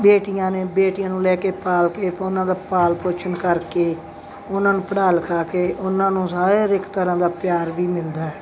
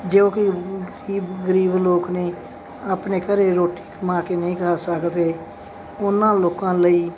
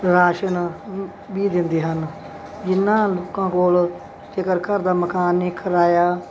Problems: none marked